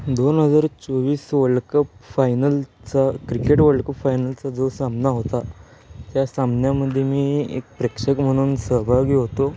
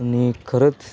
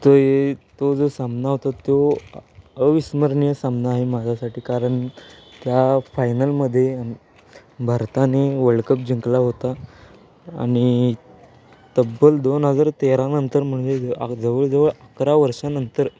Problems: constant background noise, background conversations at intervals